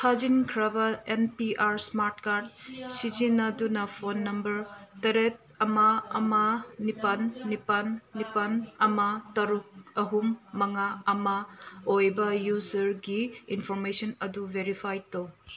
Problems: none marked